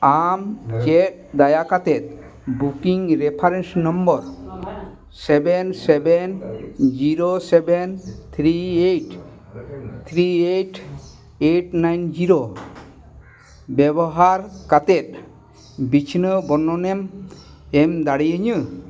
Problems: constant background noise, background conversations at intervals